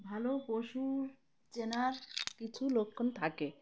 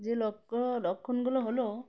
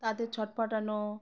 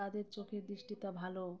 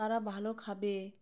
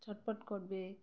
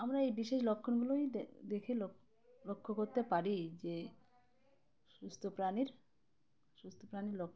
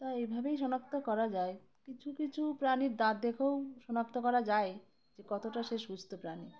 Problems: constant background noise, continuous background conversations